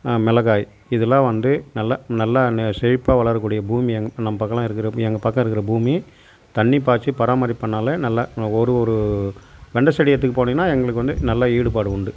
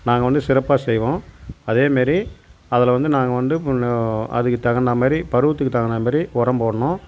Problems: none marked